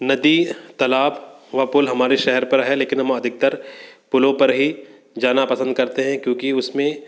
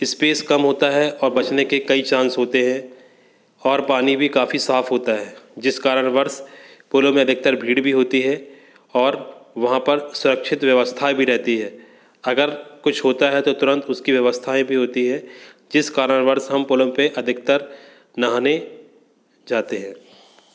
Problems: constant background noise